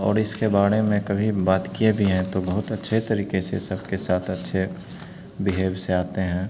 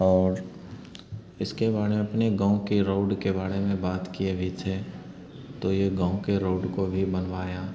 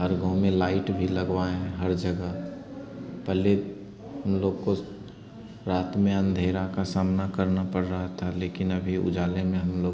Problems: constant background noise